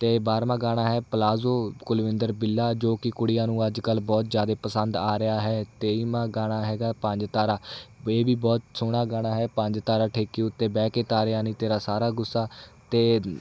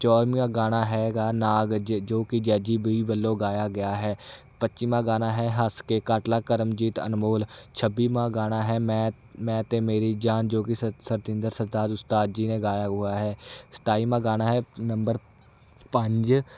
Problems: none marked